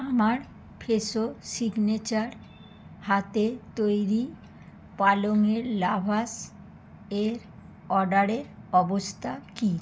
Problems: constant background noise